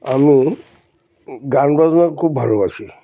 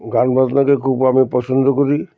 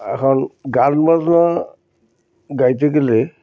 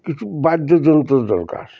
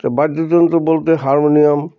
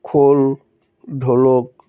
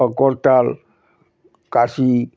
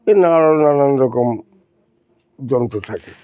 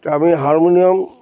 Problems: constant background noise